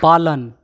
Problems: constant background noise